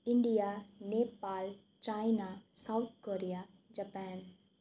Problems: none marked